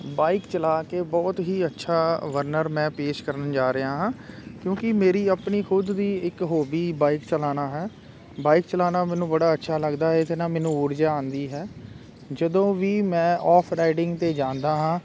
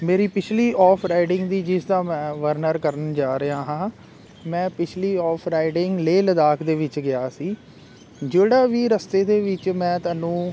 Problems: constant background noise